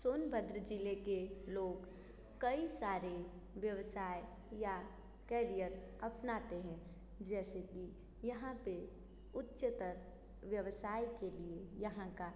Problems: constant background noise